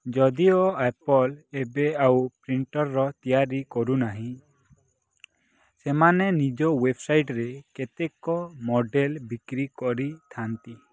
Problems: background sounds at intervals